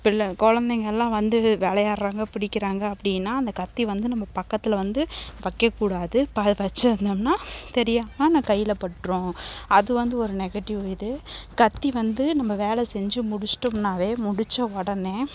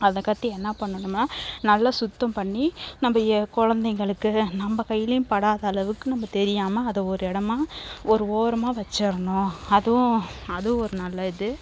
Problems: background sounds at intervals